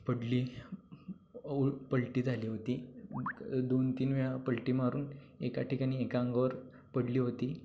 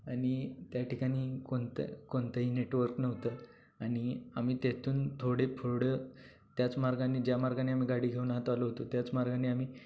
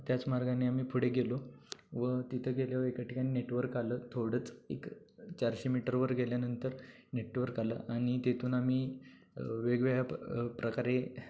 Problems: low volume